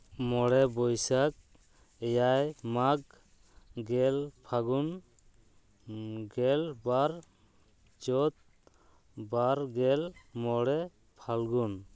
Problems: none marked